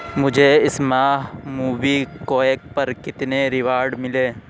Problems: constant background noise